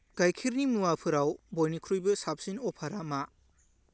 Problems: low volume